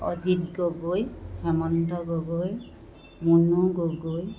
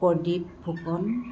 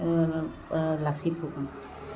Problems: constant background noise